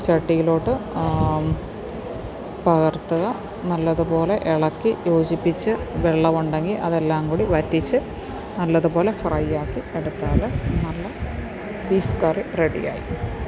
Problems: none marked